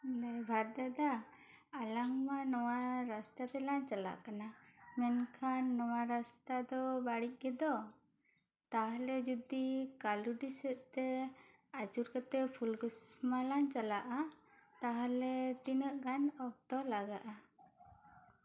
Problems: none marked